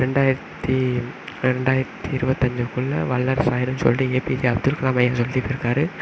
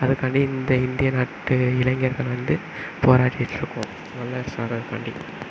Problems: background sounds at intervals